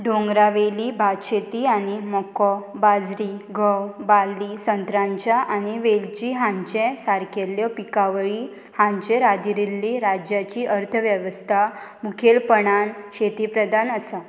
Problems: constant background noise